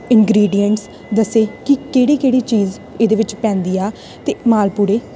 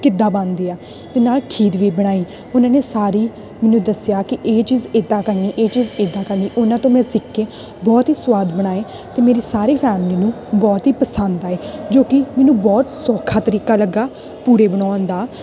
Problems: constant background noise